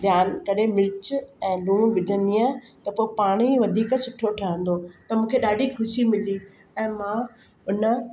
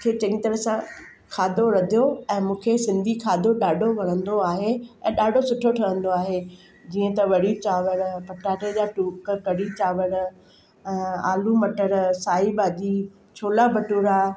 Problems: constant background noise